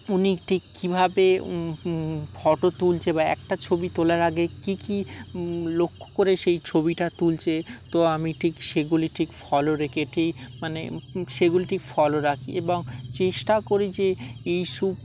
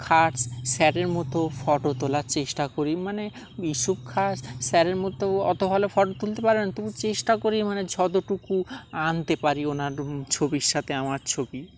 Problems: constant background noise, background conversations at intervals